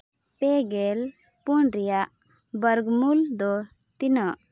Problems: none marked